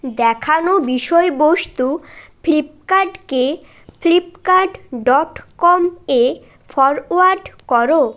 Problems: background sounds at intervals